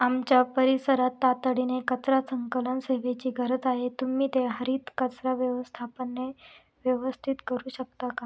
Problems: none marked